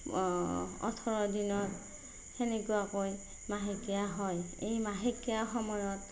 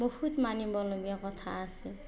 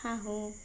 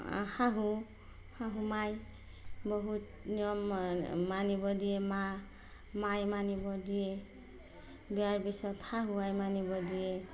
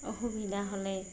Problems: none marked